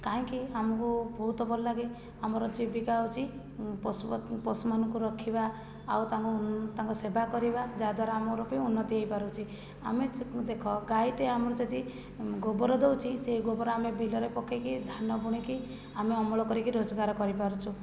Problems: low volume